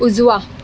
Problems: none marked